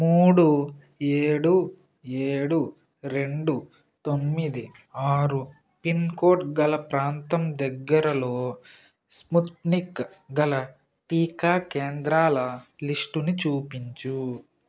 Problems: constant background noise